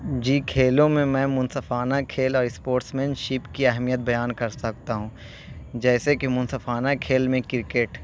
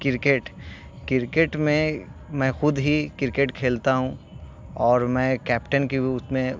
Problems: constant background noise